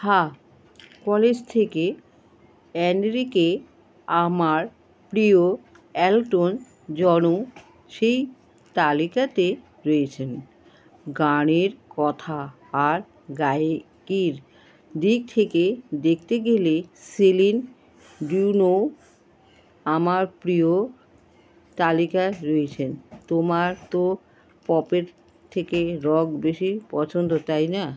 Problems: constant background noise